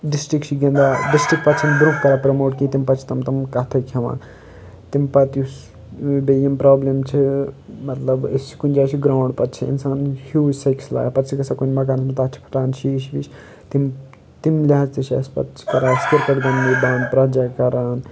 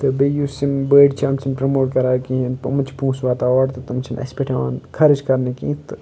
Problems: background sounds at intervals